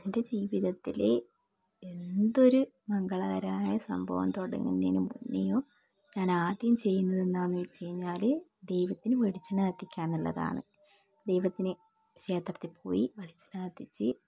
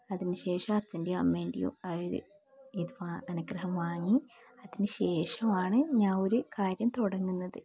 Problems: background sounds at intervals, low volume